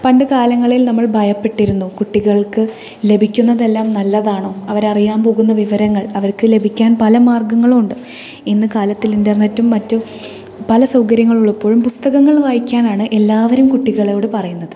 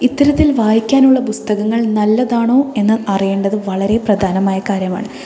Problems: continuous background conversations